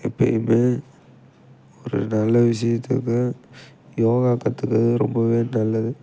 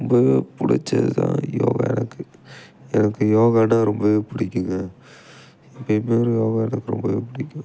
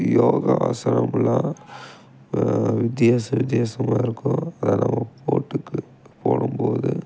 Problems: background sounds at intervals